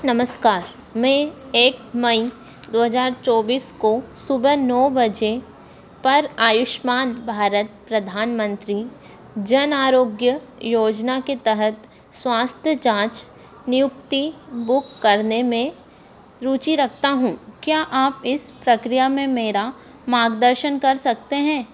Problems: constant background noise